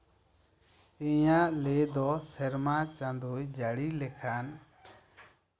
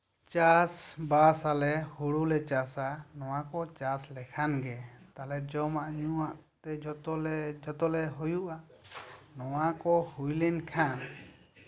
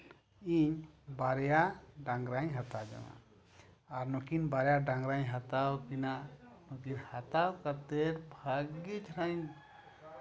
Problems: background sounds at intervals, background conversations at intervals